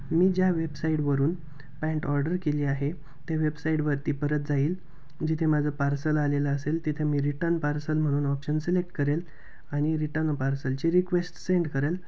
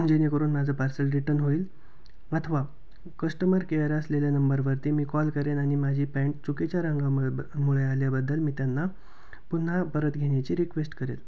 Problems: background sounds at intervals